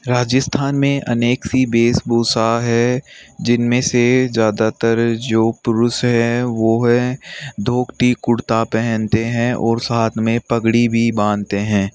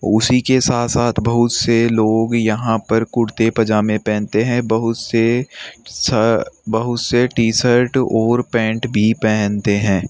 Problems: constant background noise